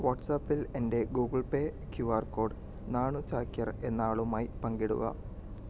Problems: none marked